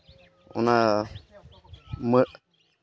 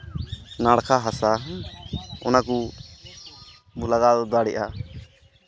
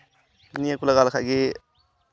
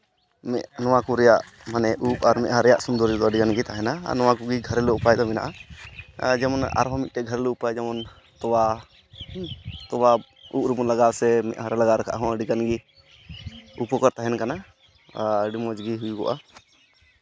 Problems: constant background noise, background conversations at intervals